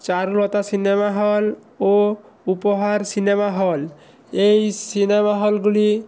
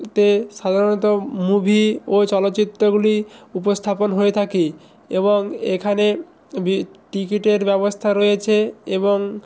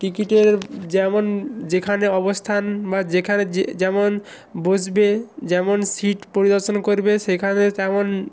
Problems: none marked